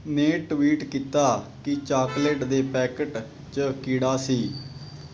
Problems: constant background noise